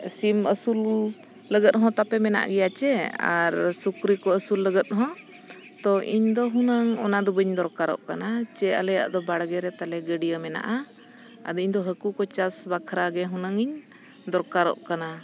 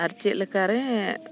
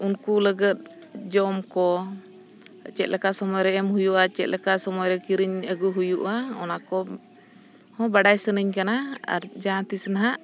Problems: constant background noise